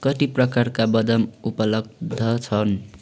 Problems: constant background noise